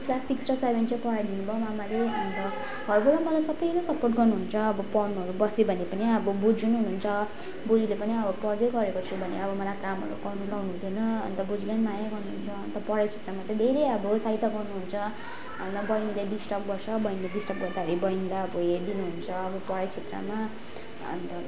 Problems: none marked